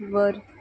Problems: background sounds at intervals